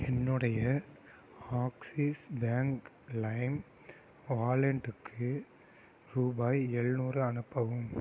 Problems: low volume